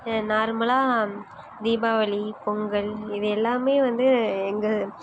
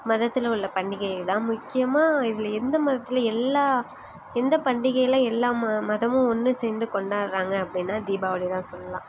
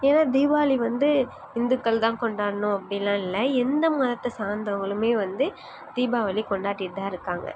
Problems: background sounds at intervals